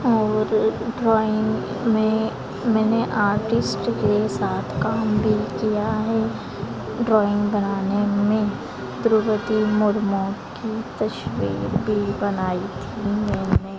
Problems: constant background noise